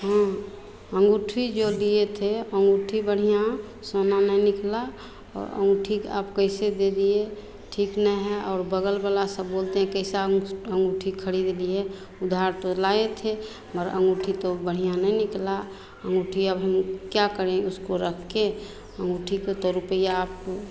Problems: constant background noise, continuous background conversations